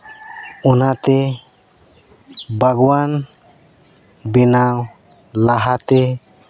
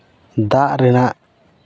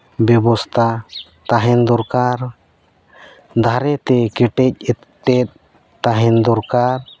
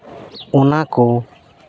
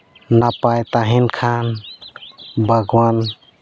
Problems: none marked